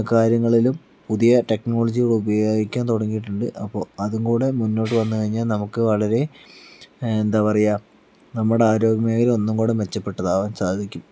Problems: background sounds at intervals